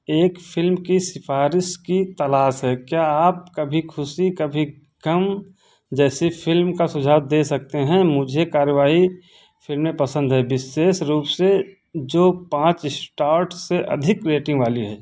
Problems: constant background noise